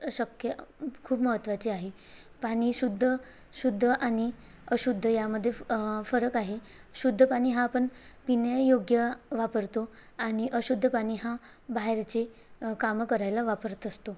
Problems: none marked